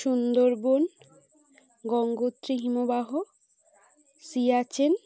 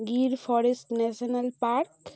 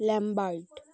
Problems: constant background noise